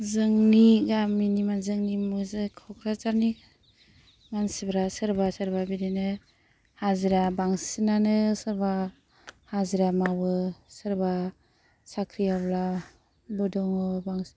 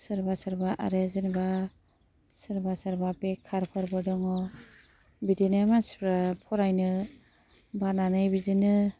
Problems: none marked